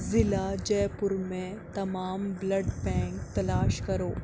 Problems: constant background noise